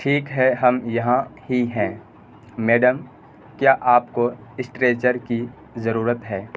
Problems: constant background noise